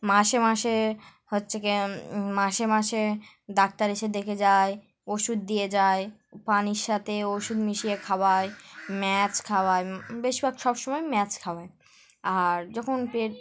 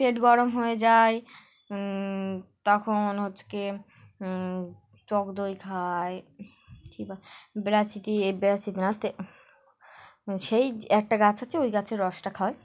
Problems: background sounds at intervals, background conversations at intervals